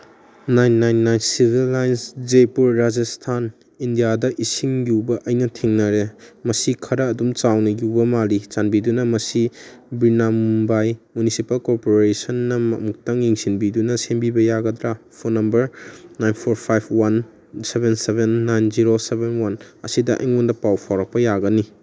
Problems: background conversations at intervals